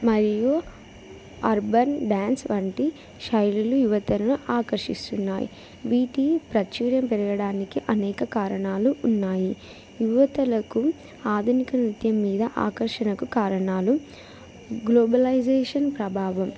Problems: background sounds at intervals